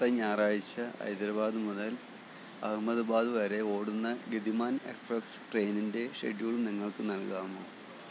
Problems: constant background noise, low volume